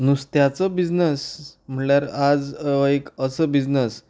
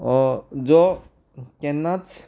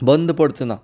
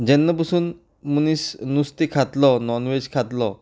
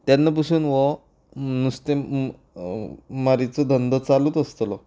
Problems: none marked